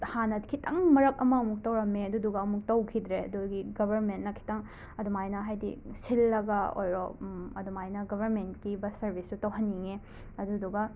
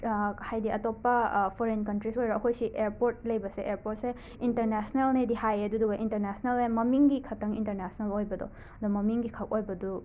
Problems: constant background noise